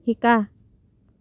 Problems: none marked